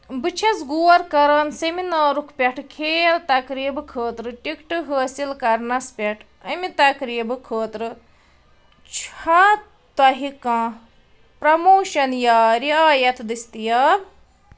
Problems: none marked